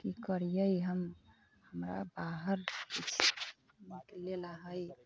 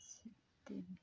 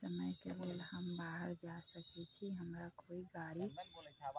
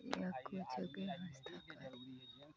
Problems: constant background noise, low volume